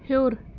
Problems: background sounds at intervals